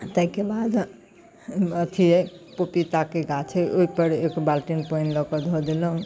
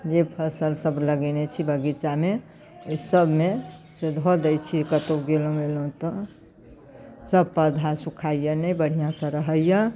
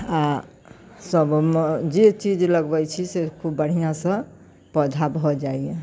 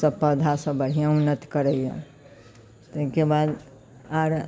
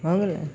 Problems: none marked